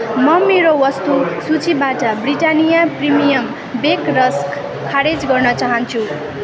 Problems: continuous background conversations